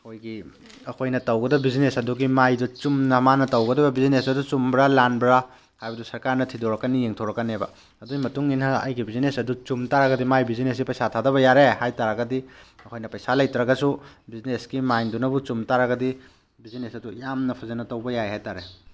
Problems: none marked